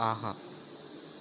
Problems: none marked